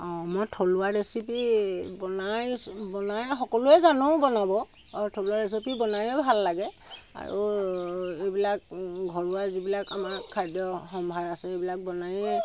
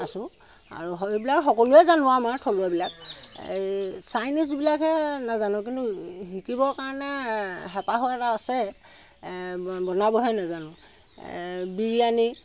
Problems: constant background noise